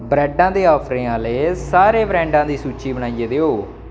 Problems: constant background noise